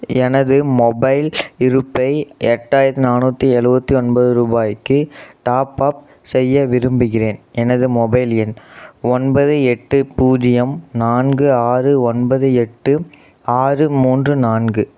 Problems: none marked